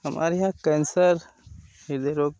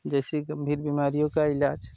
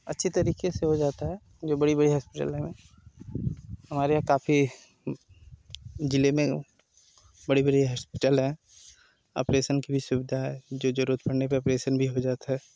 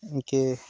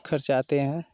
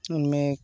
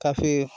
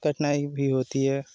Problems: constant background noise